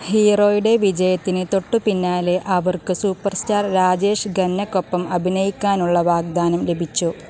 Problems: constant background noise